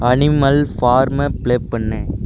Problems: constant background noise